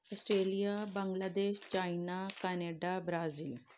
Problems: background sounds at intervals